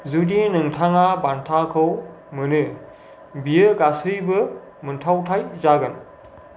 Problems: none marked